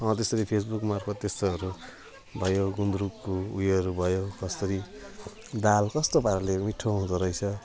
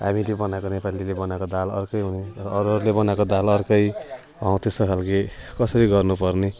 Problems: none marked